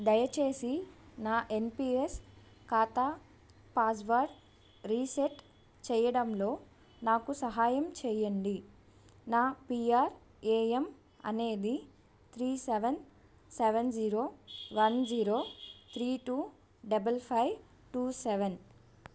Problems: none marked